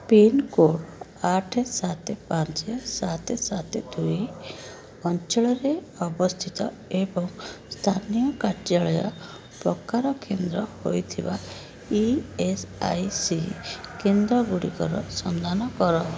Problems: constant background noise